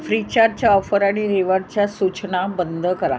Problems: none marked